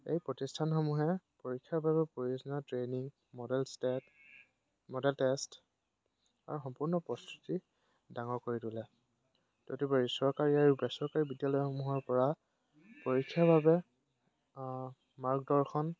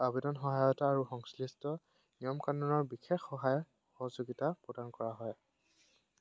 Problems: background sounds at intervals